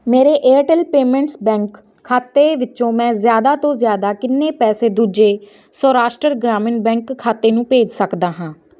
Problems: background sounds at intervals